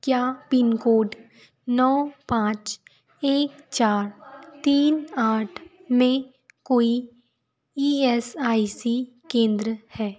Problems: none marked